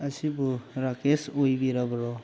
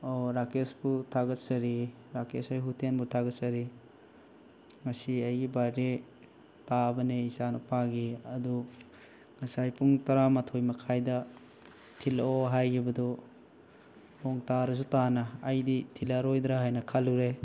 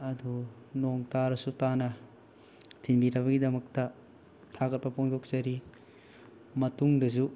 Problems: background sounds at intervals